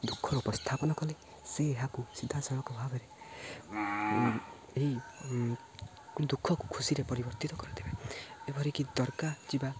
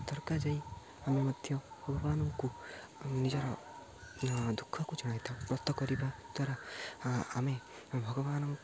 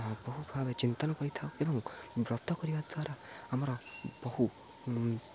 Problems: low volume